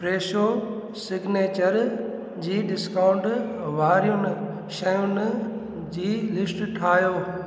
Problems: constant background noise